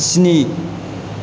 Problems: constant background noise